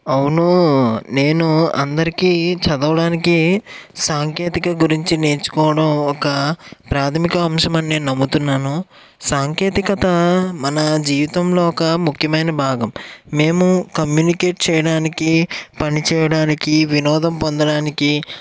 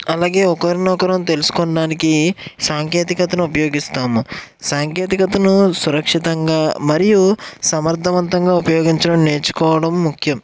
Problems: background sounds at intervals